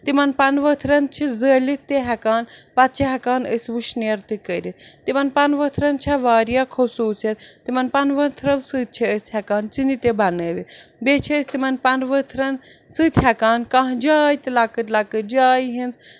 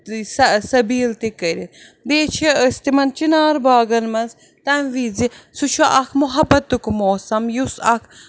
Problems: none marked